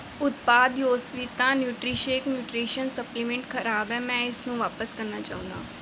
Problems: constant background noise